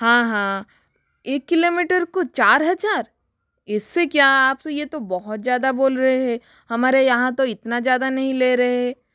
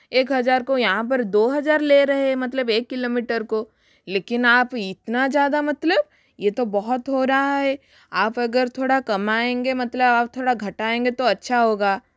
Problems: none marked